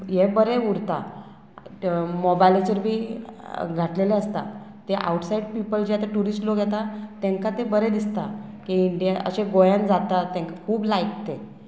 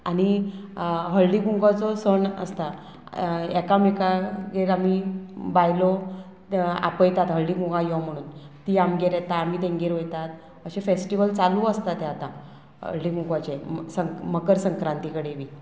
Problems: constant background noise